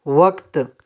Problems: none marked